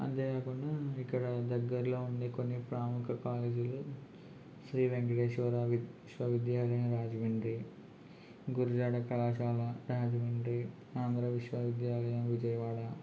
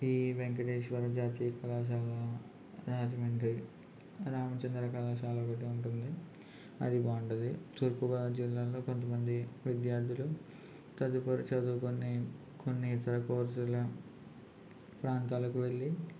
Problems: constant background noise, low volume